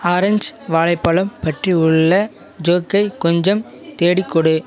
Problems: none marked